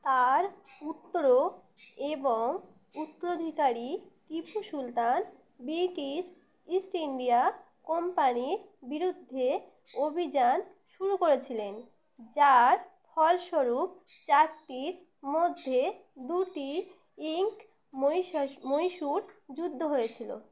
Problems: background sounds at intervals